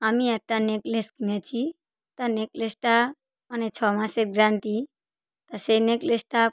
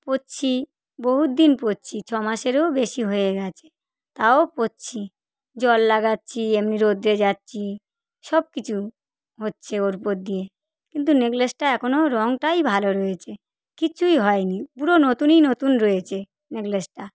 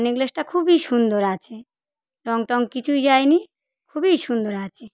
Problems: none marked